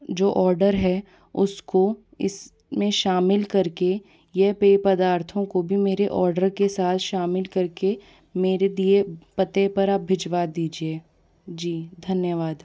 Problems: background conversations at intervals